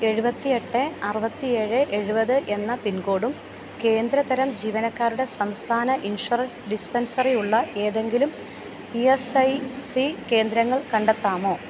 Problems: none marked